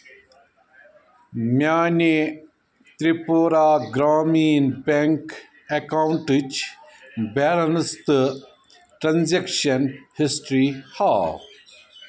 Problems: none marked